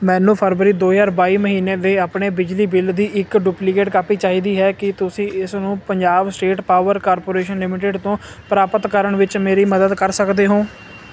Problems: none marked